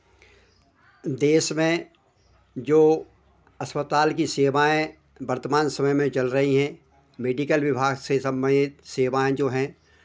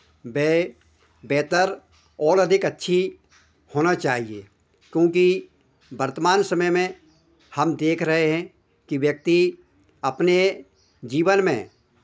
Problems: none marked